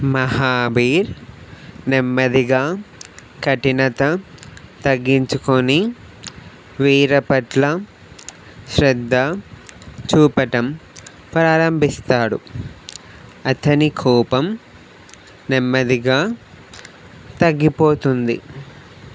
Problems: none marked